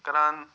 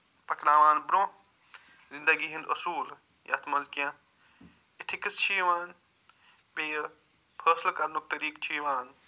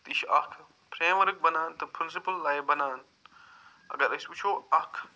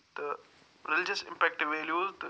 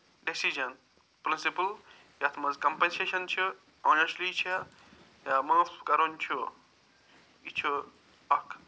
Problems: none marked